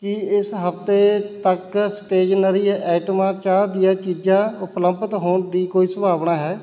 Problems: constant background noise